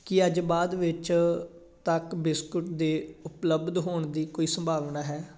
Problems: none marked